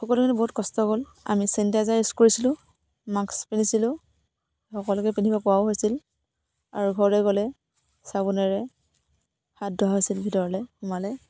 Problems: none marked